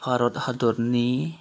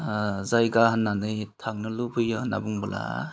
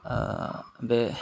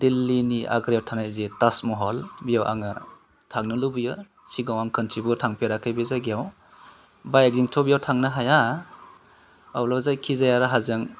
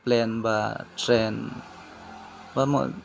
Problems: none marked